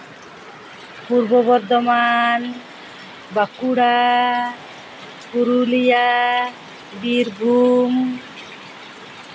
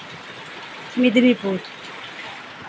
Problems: constant background noise